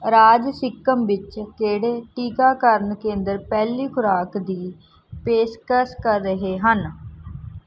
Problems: background sounds at intervals